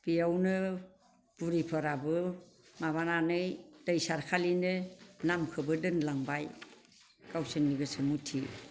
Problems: constant background noise